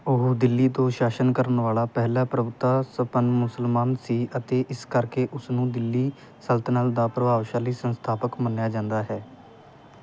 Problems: background sounds at intervals